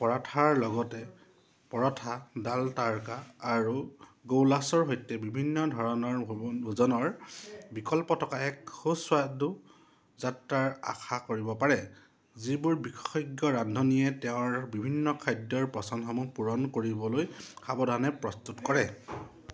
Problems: none marked